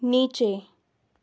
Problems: none marked